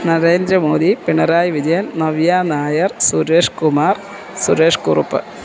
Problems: constant background noise